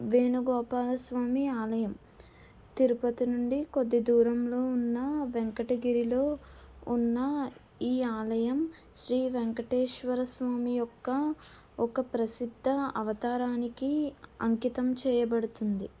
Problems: none marked